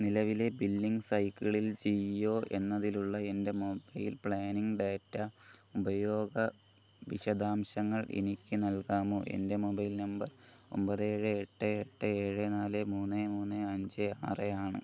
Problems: constant background noise